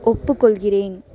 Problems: none marked